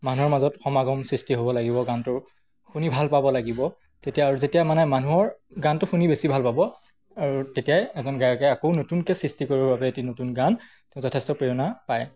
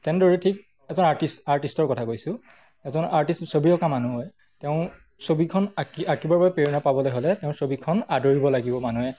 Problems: none marked